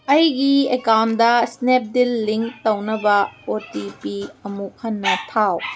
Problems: background sounds at intervals